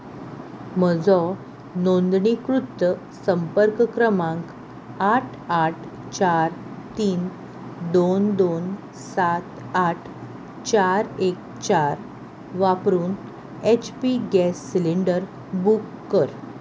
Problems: none marked